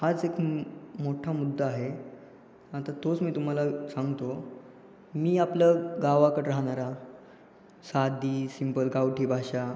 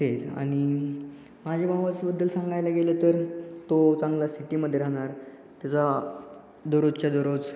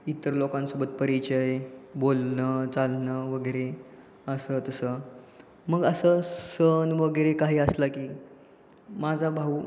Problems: constant background noise